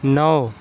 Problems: none marked